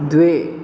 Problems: constant background noise